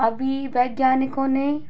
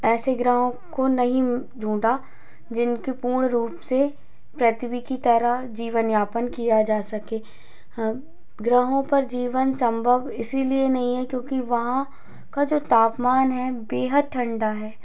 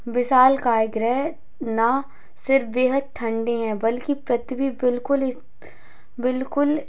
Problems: constant background noise